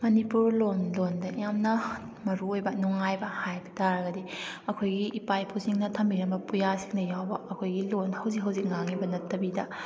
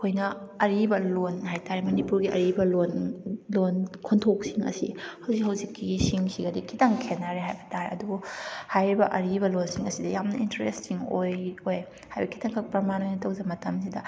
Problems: none marked